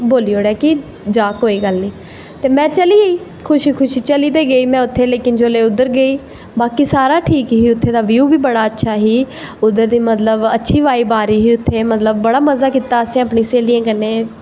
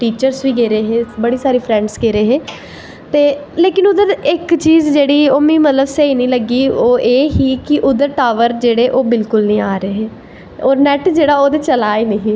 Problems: none marked